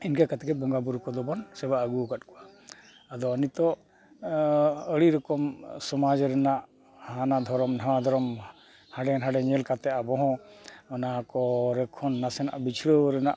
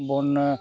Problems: constant background noise, continuous background conversations